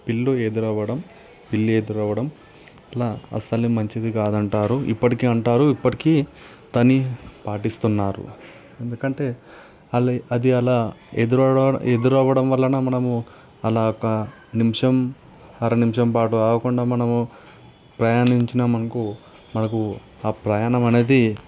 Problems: none marked